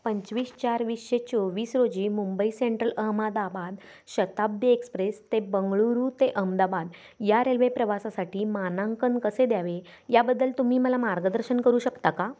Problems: constant background noise